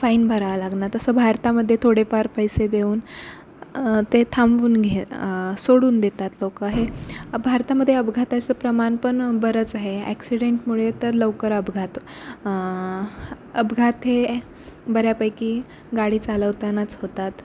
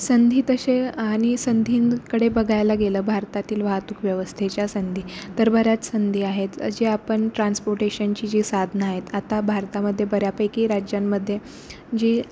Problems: constant background noise